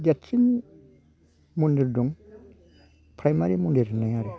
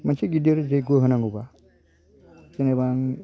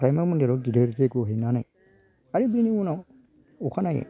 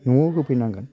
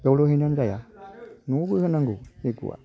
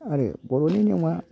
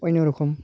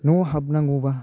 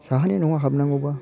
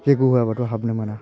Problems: constant background noise